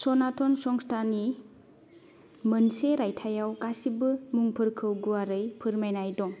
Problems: background sounds at intervals